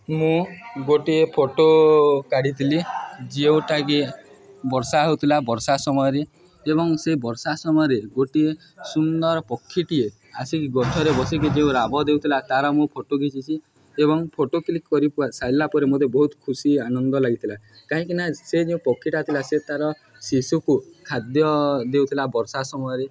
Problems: background sounds at intervals, background conversations at intervals